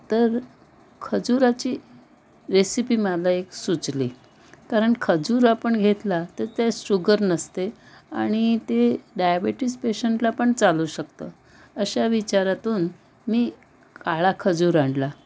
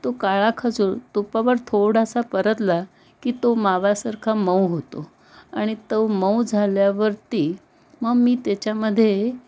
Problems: background sounds at intervals, background conversations at intervals